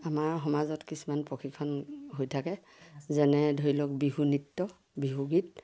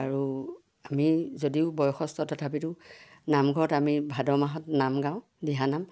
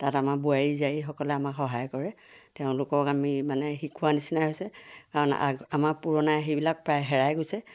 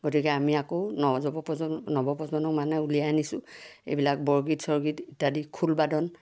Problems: none marked